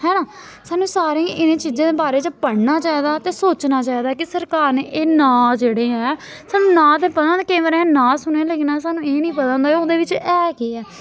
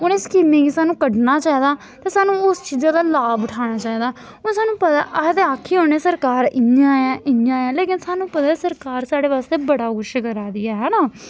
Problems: none marked